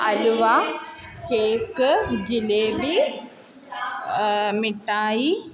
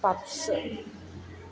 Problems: continuous background conversations